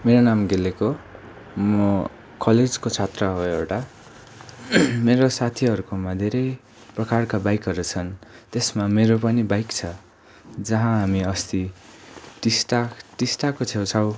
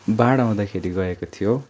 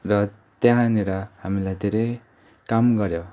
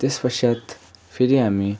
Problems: none marked